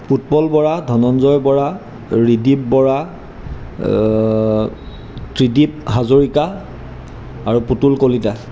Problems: none marked